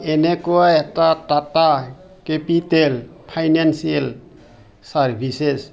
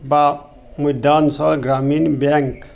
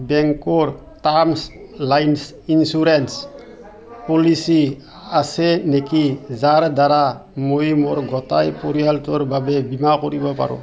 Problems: constant background noise, background conversations at intervals